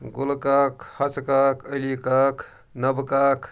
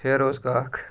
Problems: none marked